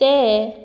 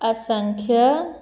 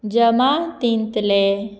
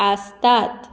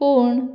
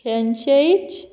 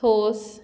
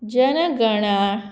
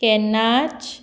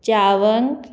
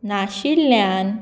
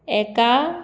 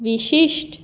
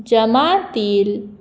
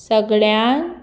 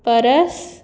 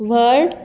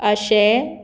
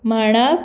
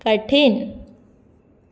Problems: none marked